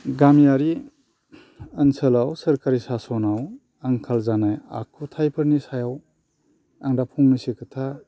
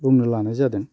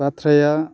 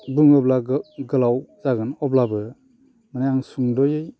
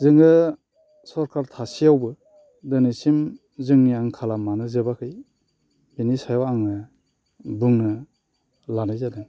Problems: none marked